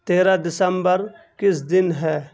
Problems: none marked